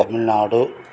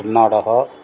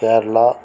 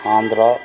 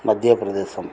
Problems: constant background noise